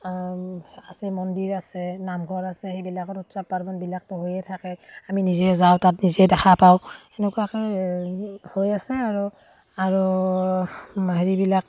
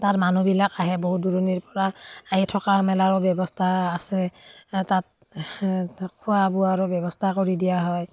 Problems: none marked